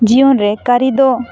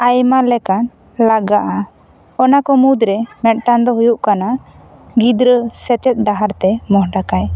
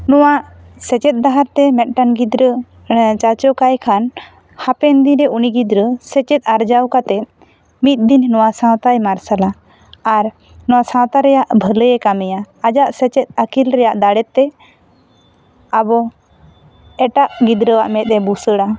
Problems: none marked